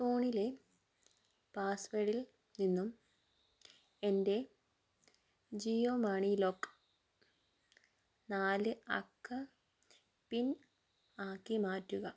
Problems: low volume